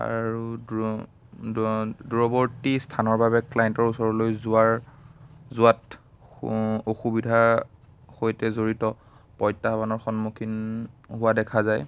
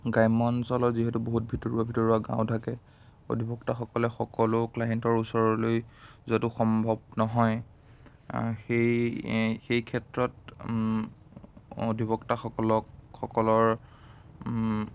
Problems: constant background noise